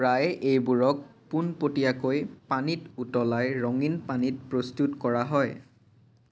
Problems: background conversations at intervals